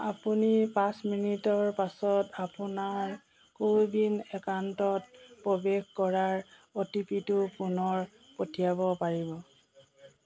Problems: constant background noise, continuous background conversations